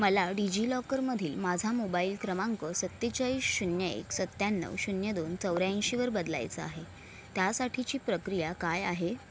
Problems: none marked